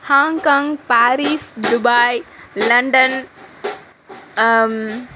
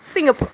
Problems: constant background noise